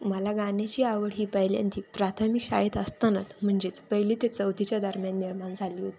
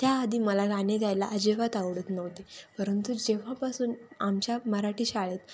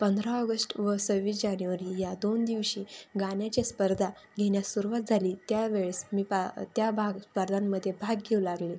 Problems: constant background noise, background conversations at intervals